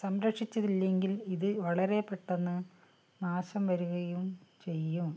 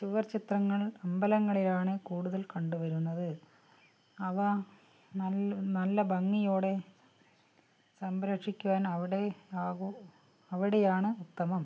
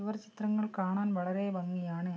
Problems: low volume